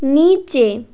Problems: constant background noise